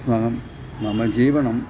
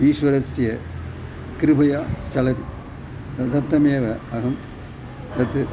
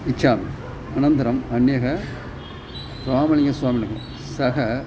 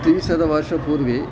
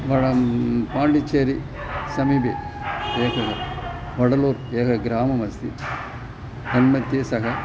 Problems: constant background noise